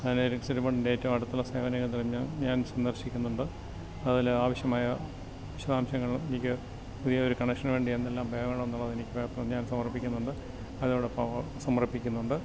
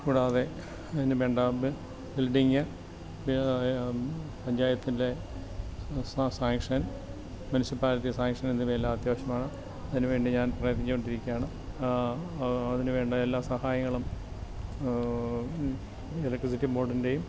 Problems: constant background noise, low volume